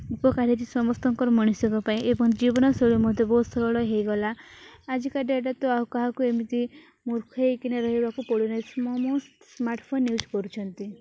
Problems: background sounds at intervals